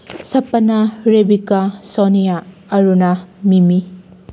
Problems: none marked